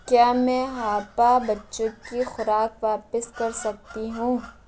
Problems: constant background noise